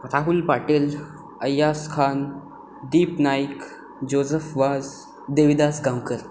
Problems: constant background noise